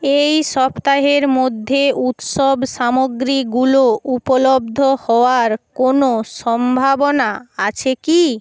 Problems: none marked